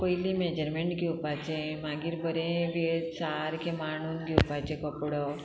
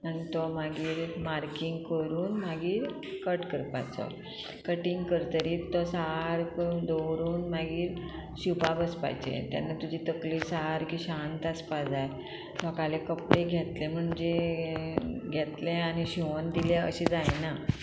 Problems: background sounds at intervals